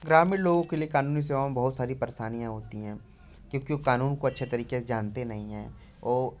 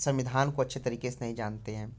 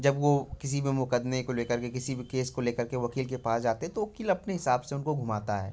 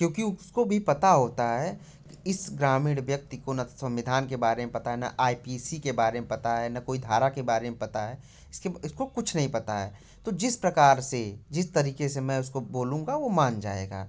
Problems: none marked